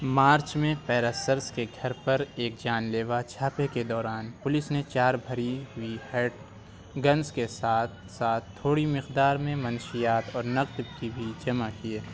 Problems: background conversations at intervals